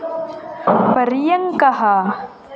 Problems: none marked